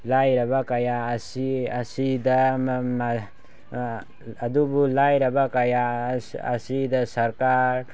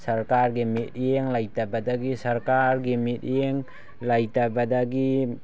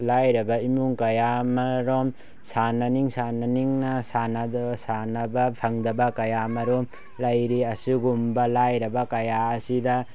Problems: none marked